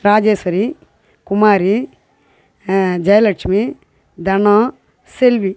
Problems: constant background noise